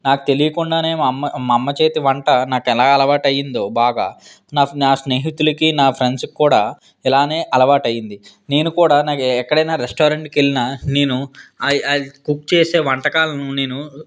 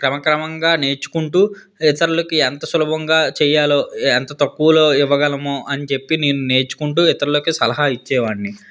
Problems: background conversations at intervals